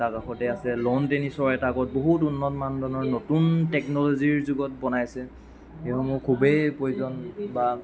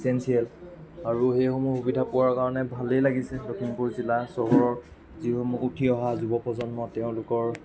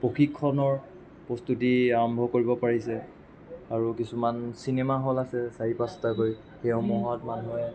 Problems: constant background noise, continuous background conversations